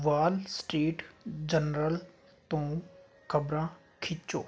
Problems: background sounds at intervals